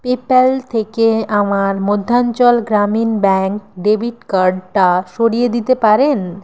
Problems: constant background noise